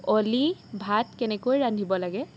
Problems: none marked